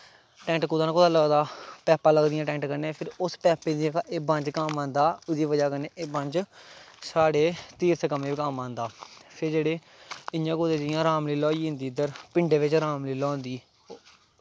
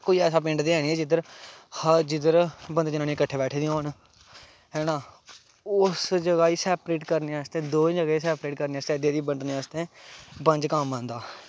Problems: constant background noise